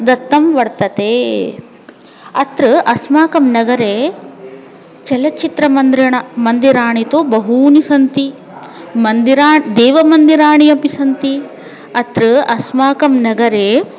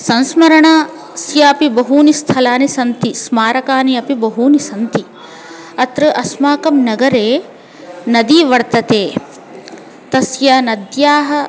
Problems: constant background noise, continuous background conversations